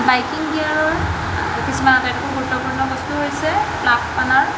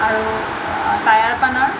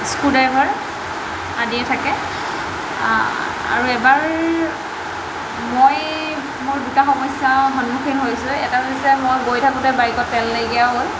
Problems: constant background noise